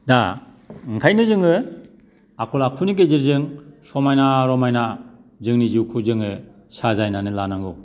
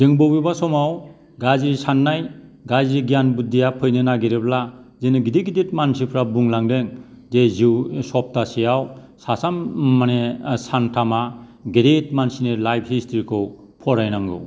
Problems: background sounds at intervals